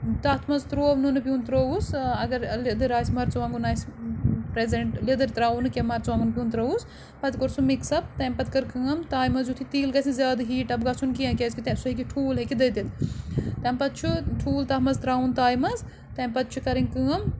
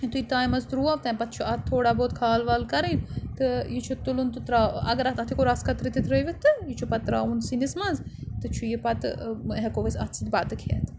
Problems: none marked